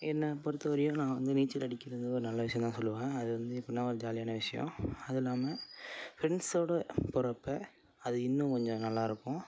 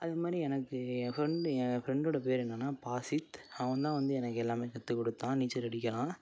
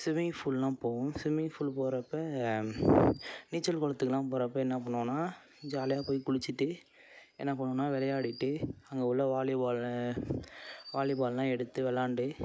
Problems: constant background noise